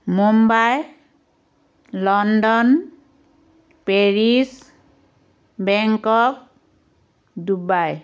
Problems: background sounds at intervals